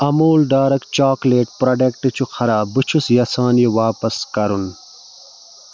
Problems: constant background noise